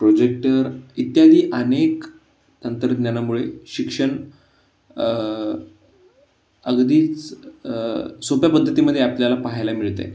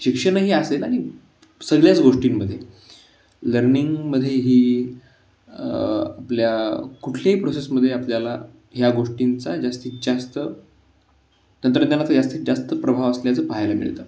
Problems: constant background noise